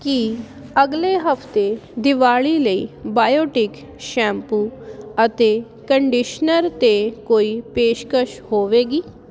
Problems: none marked